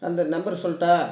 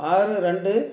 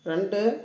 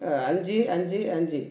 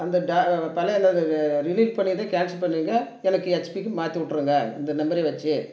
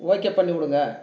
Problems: none marked